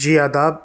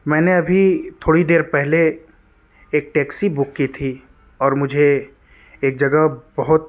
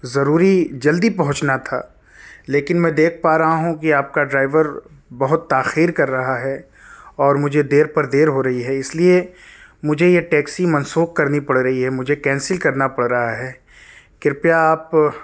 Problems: background sounds at intervals, low volume